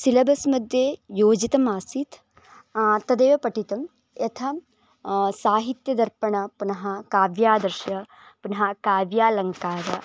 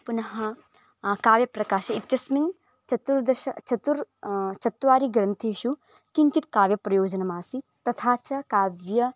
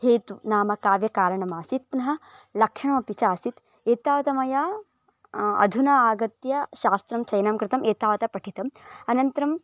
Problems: none marked